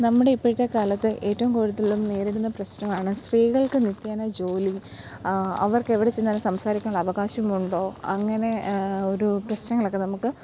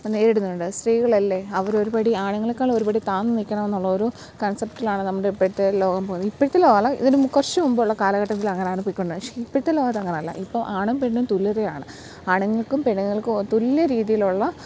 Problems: low volume